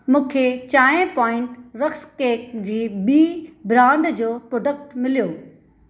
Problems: none marked